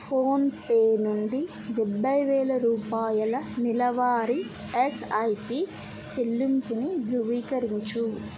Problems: none marked